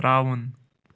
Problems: none marked